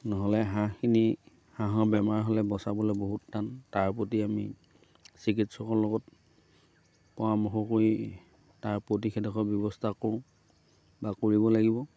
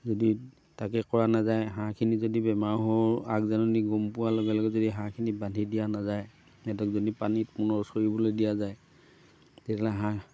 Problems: background sounds at intervals